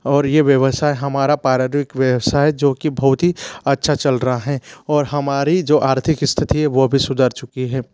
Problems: constant background noise